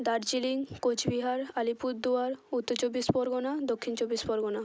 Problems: none marked